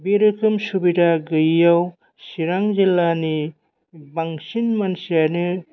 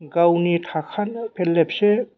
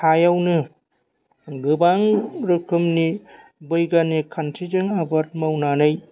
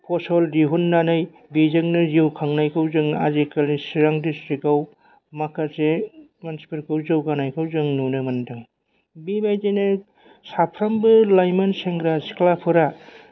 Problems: none marked